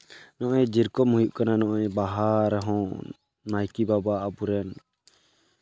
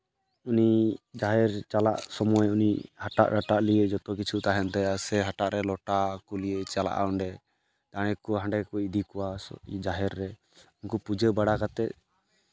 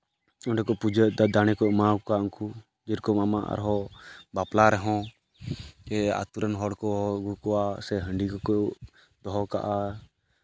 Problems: constant background noise